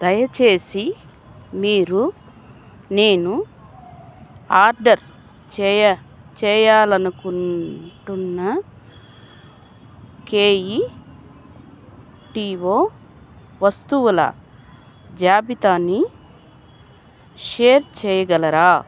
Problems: none marked